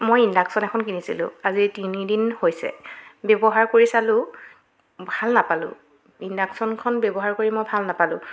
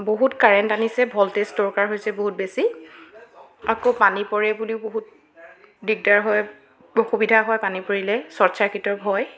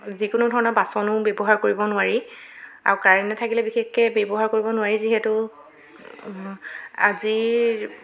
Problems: background sounds at intervals, continuous background conversations